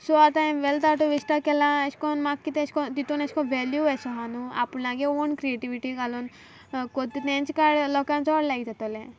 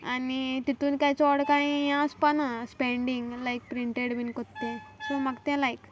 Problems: background sounds at intervals